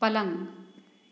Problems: low volume